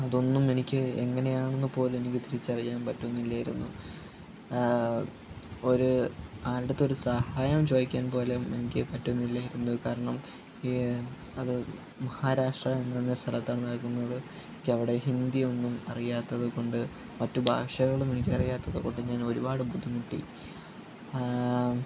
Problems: constant background noise, background conversations at intervals, low volume